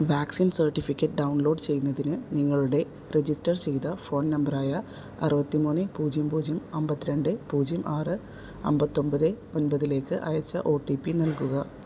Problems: background sounds at intervals